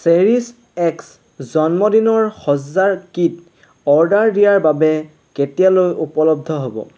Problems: constant background noise